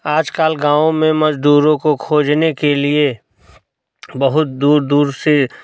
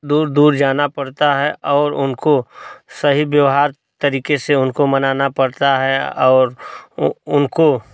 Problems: none marked